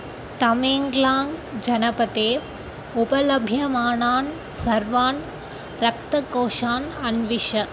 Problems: none marked